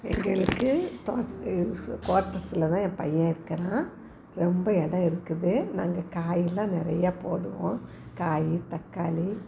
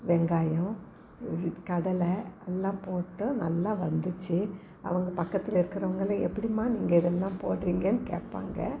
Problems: background conversations at intervals